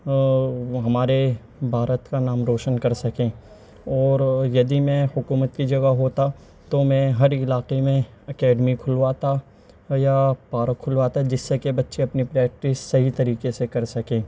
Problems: constant background noise, background conversations at intervals, low volume